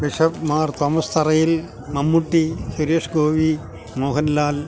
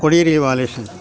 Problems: constant background noise